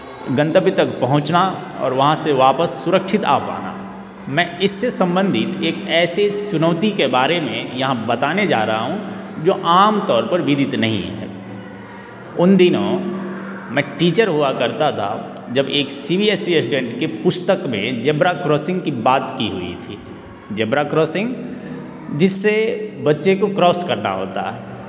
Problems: constant background noise